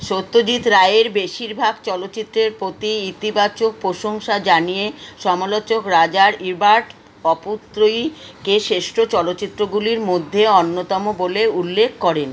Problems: constant background noise